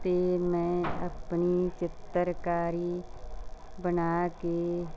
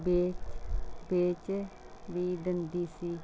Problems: none marked